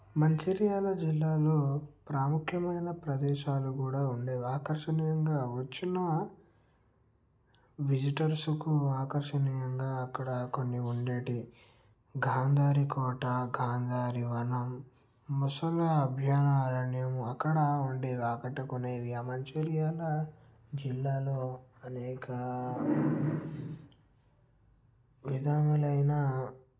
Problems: low volume